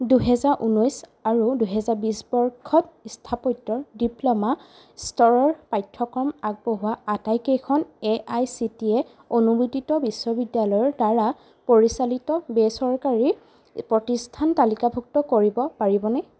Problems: constant background noise